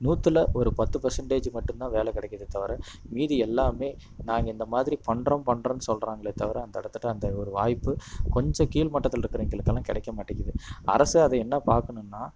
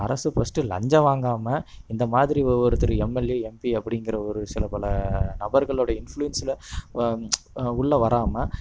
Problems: constant background noise